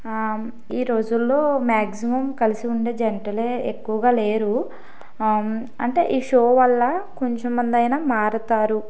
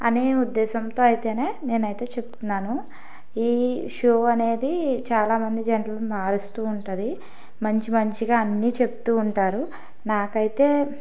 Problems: background sounds at intervals